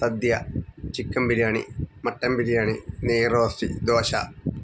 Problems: background sounds at intervals